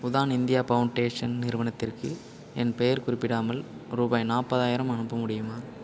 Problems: none marked